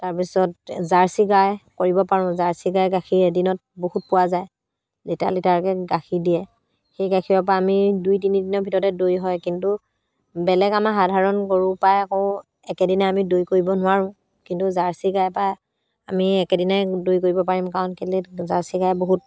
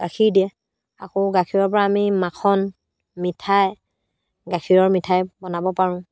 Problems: constant background noise